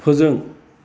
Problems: constant background noise